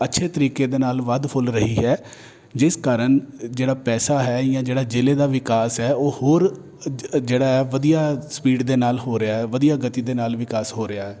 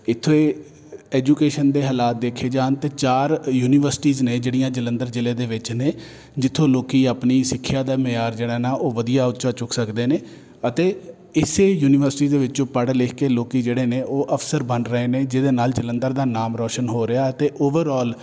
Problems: none marked